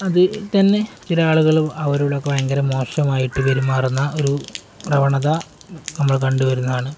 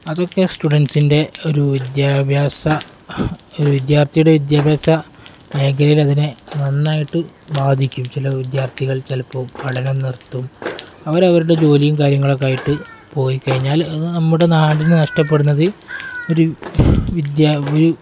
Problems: none marked